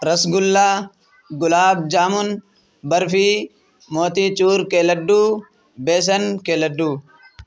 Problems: none marked